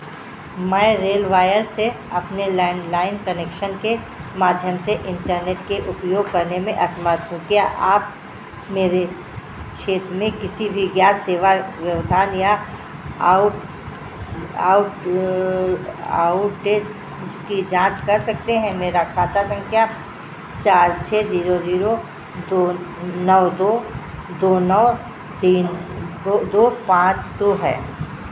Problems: constant background noise